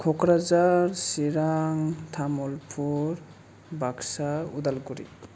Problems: low volume